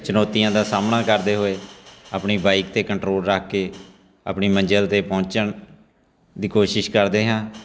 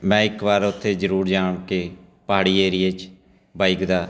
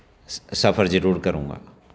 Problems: background sounds at intervals